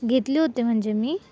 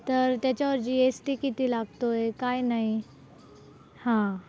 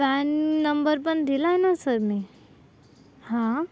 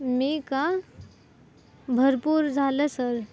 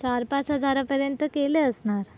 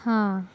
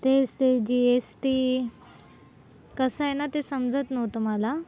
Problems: none marked